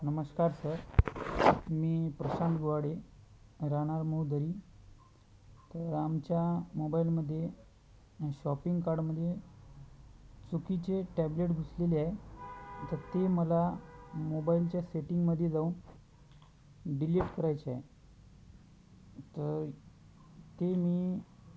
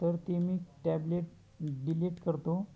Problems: constant background noise, background conversations at intervals